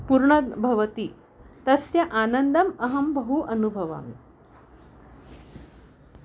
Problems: constant background noise